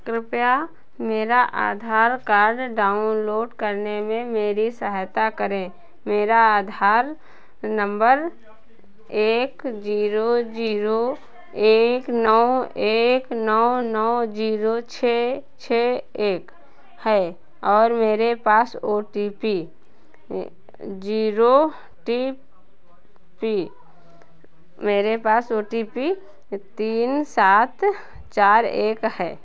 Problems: none marked